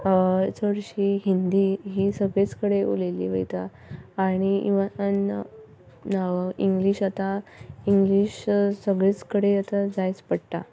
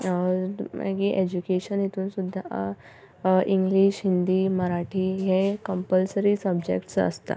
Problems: none marked